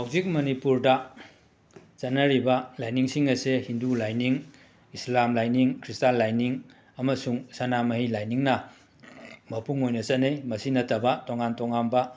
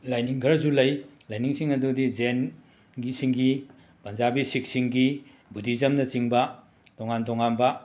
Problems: background sounds at intervals